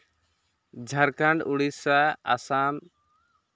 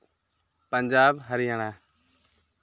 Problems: none marked